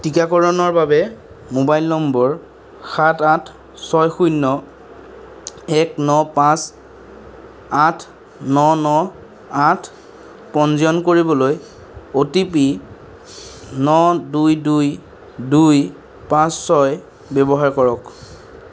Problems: none marked